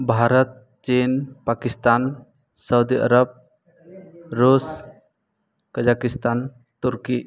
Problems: none marked